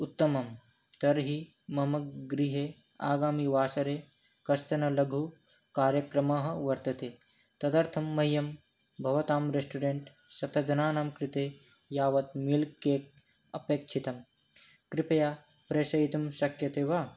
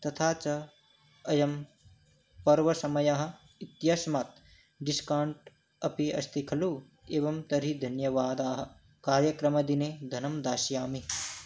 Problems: none marked